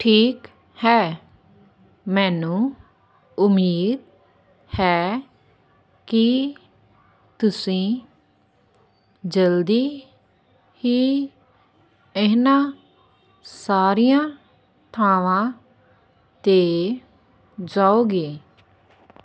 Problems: none marked